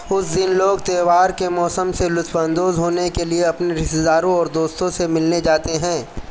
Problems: constant background noise